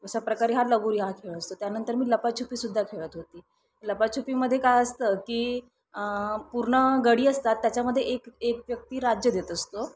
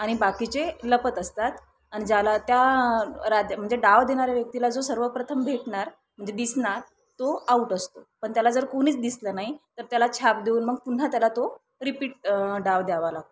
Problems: none marked